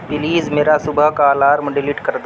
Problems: constant background noise